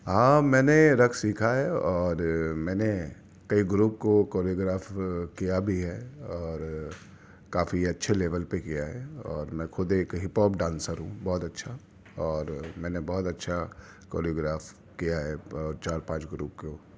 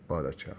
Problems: none marked